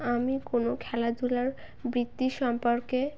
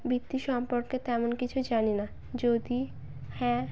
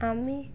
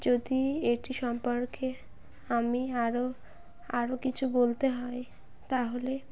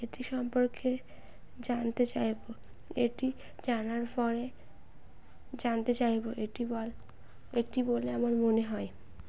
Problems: constant background noise